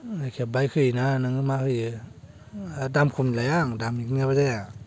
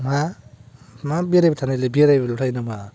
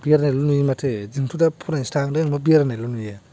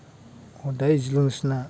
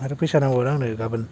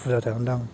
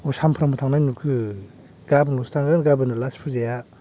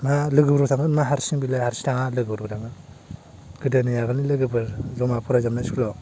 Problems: low volume